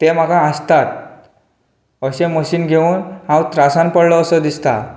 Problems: none marked